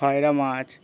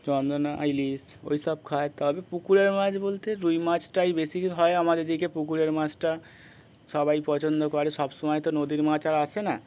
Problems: constant background noise